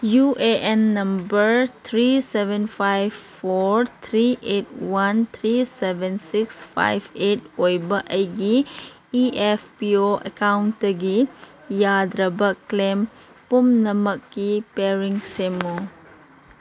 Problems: background sounds at intervals